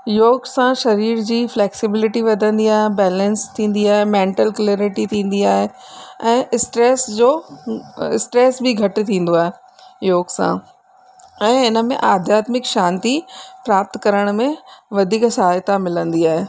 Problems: constant background noise